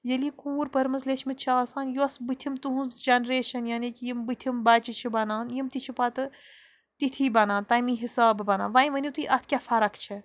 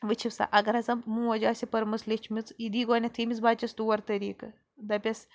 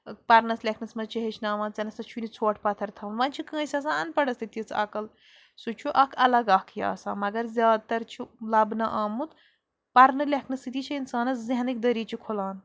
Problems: background sounds at intervals